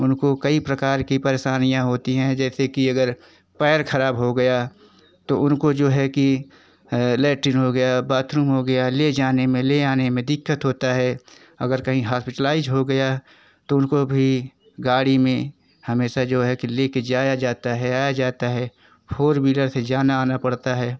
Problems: constant background noise